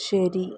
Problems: low volume